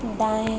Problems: constant background noise